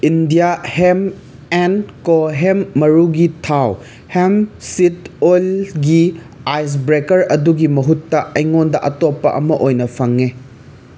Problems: constant background noise